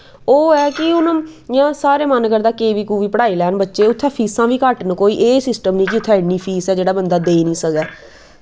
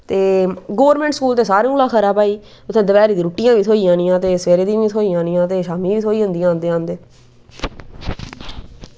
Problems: background sounds at intervals, background conversations at intervals